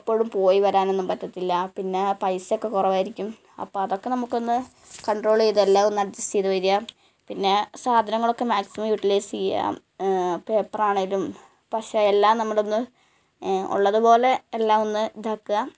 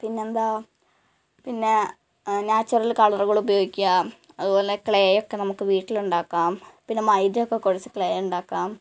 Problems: background sounds at intervals